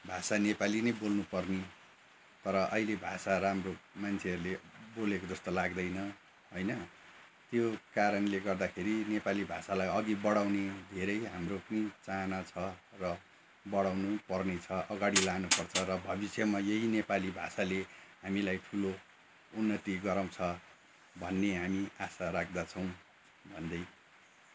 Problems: background sounds at intervals